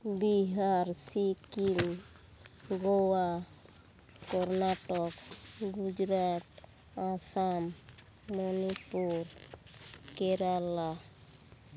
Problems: background sounds at intervals, background conversations at intervals